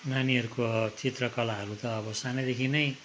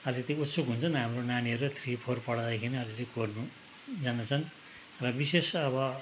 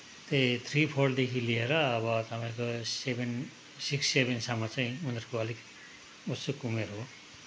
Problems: none marked